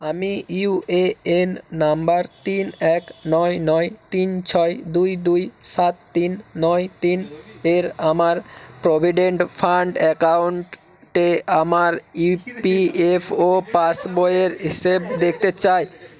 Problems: background sounds at intervals, continuous background conversations